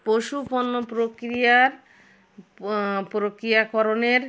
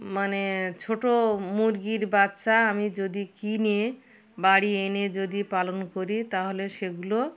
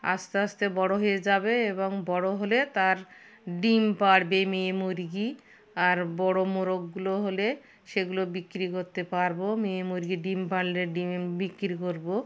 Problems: constant background noise, background conversations at intervals